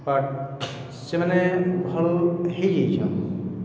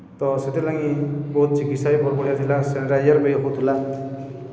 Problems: none marked